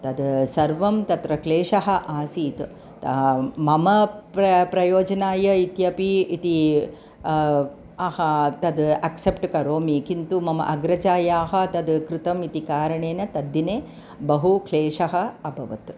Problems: none marked